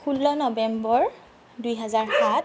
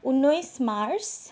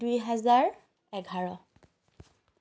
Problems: background sounds at intervals